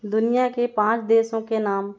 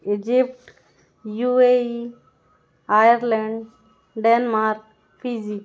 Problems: none marked